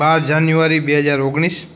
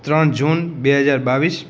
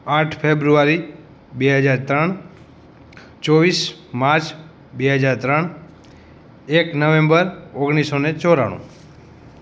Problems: none marked